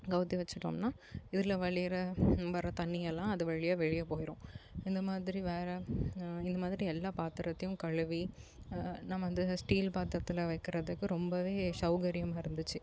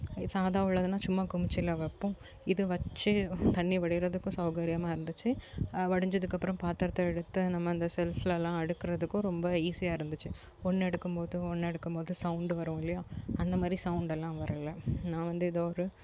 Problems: none marked